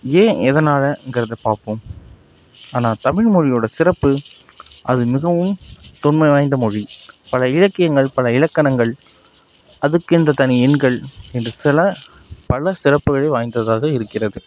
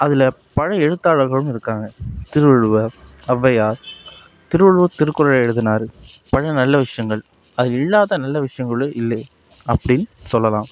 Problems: none marked